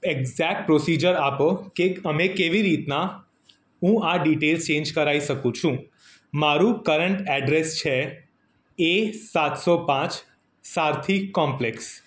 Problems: none marked